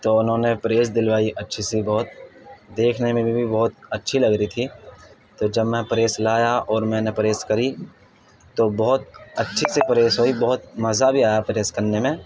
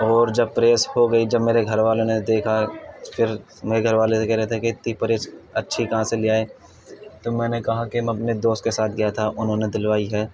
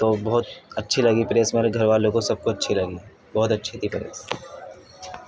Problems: constant background noise, background conversations at intervals